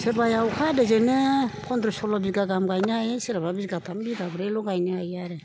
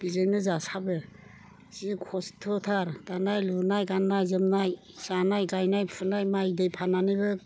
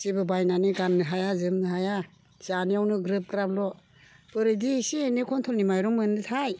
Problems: constant background noise